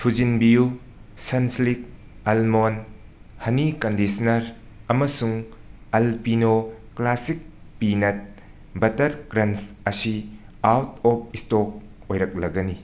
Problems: constant background noise